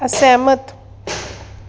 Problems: background sounds at intervals